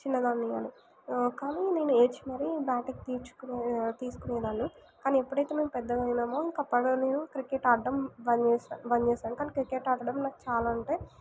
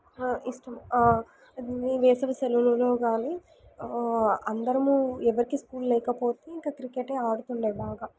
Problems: background sounds at intervals